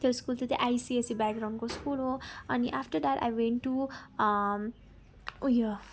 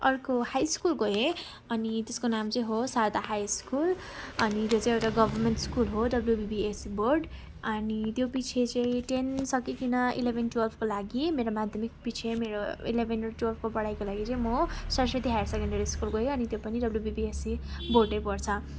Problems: background sounds at intervals, background conversations at intervals